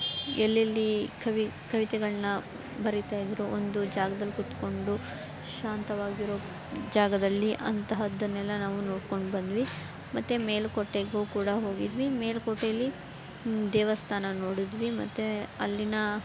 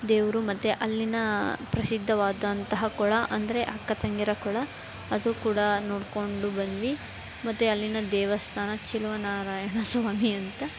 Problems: background sounds at intervals, background conversations at intervals